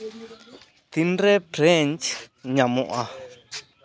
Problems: background sounds at intervals, background conversations at intervals